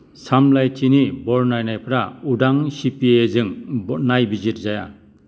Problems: none marked